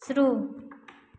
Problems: background sounds at intervals, echo